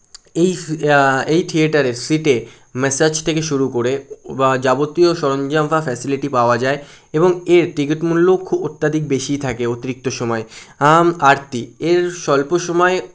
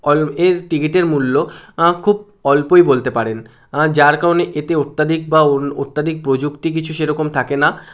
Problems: none marked